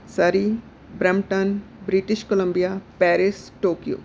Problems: background sounds at intervals